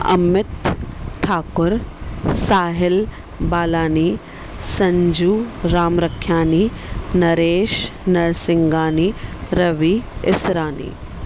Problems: none marked